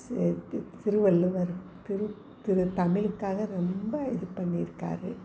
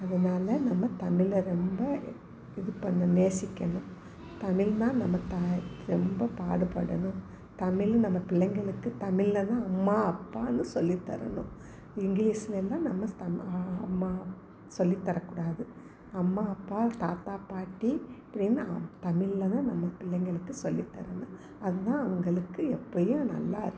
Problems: constant background noise